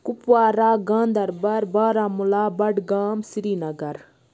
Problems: none marked